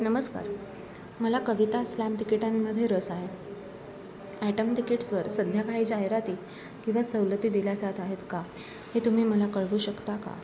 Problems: constant background noise, continuous background conversations